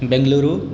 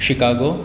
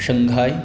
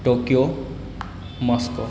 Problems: background sounds at intervals